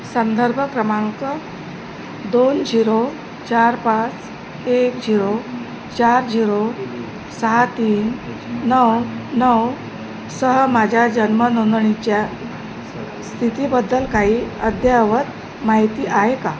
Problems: constant background noise, background conversations at intervals